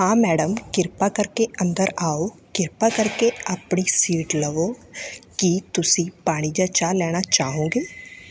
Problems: none marked